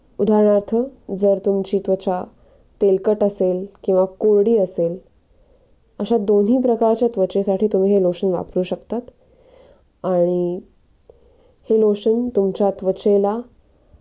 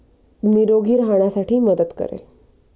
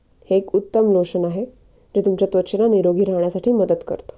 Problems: background sounds at intervals